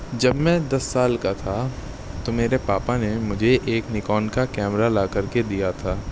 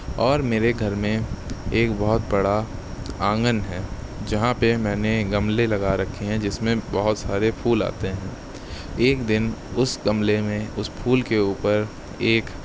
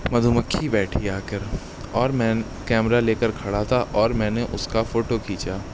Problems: none marked